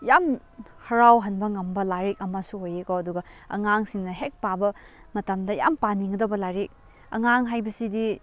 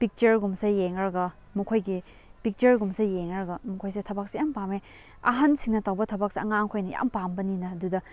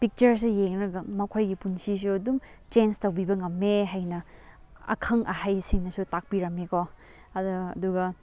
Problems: none marked